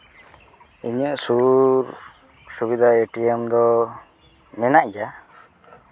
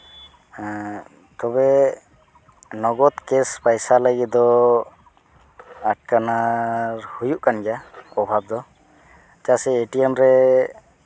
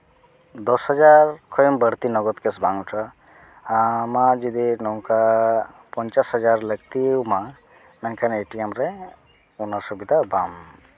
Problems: background conversations at intervals